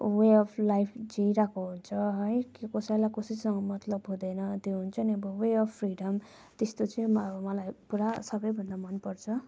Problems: none marked